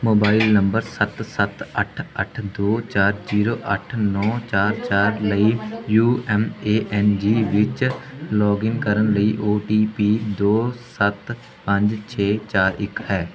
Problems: none marked